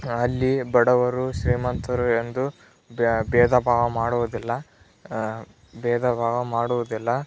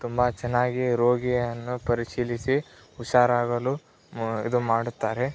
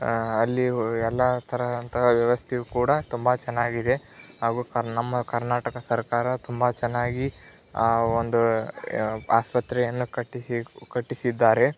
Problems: background sounds at intervals